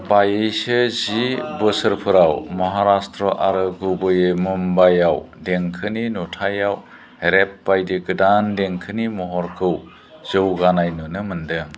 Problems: constant background noise